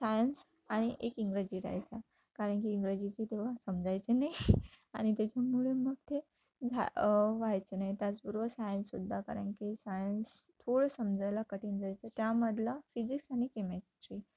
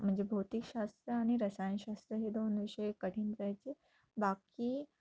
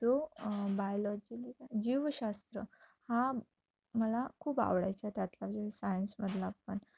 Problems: none marked